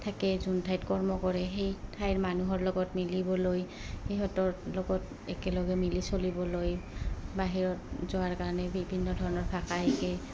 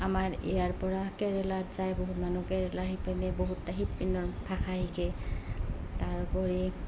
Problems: background sounds at intervals